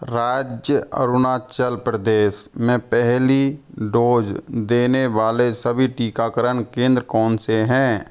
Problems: none marked